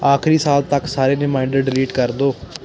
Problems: none marked